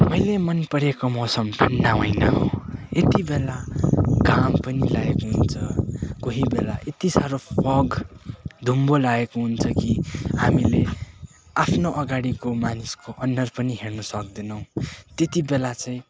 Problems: none marked